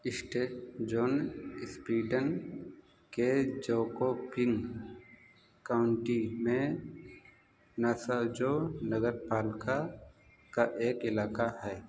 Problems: constant background noise